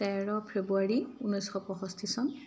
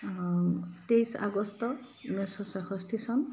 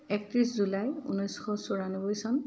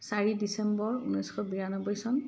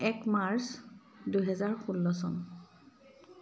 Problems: constant background noise